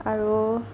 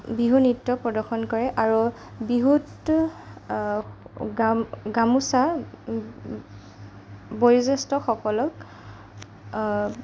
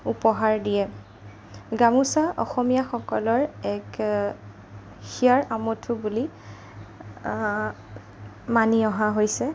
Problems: none marked